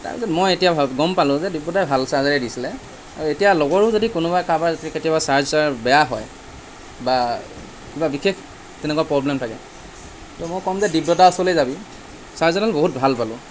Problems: constant background noise